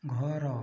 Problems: low volume